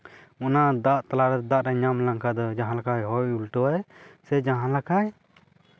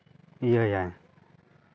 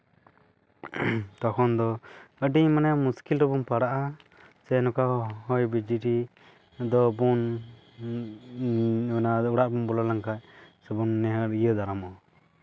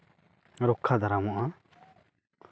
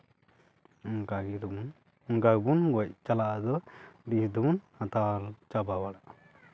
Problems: background sounds at intervals, background conversations at intervals